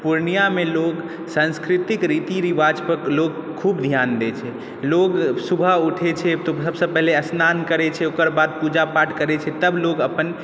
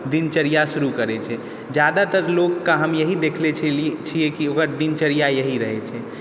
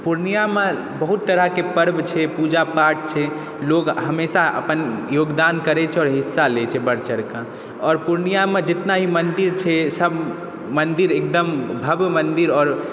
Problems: background sounds at intervals